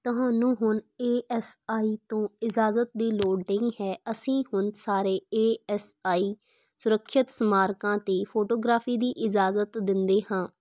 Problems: none marked